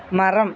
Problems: constant background noise